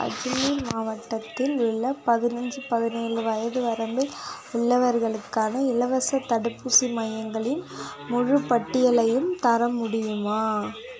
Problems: continuous background conversations